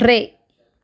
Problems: background conversations at intervals